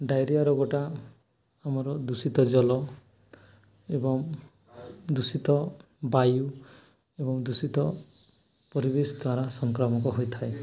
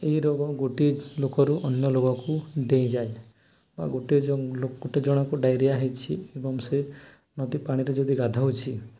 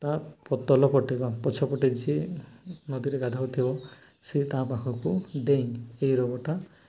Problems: continuous background conversations